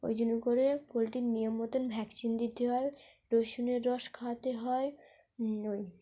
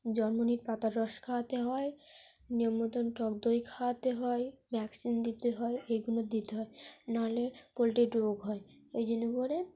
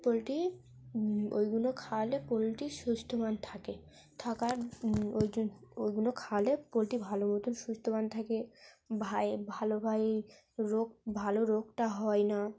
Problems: background sounds at intervals, low volume